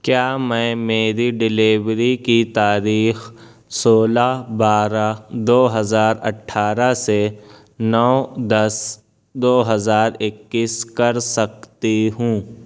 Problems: none marked